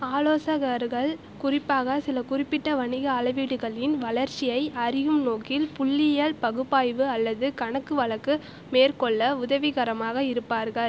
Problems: constant background noise